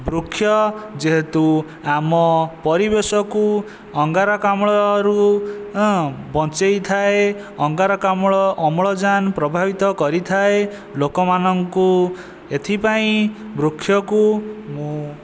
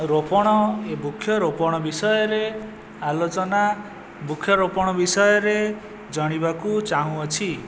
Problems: constant background noise